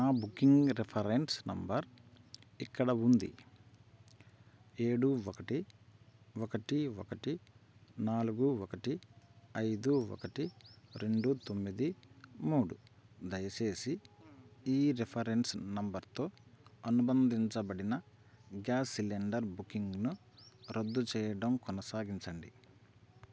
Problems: constant background noise